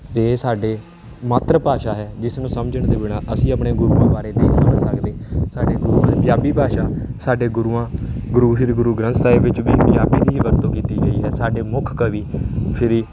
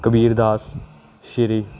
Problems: constant background noise